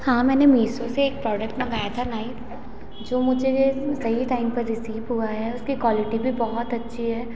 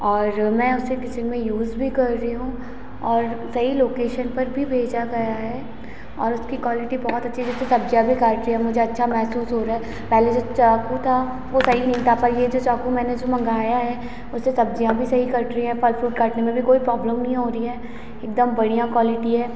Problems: constant background noise, echo